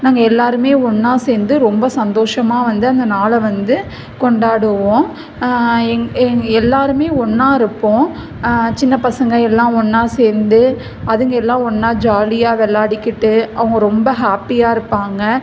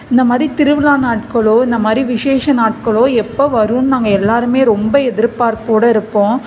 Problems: background conversations at intervals